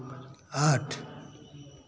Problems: constant background noise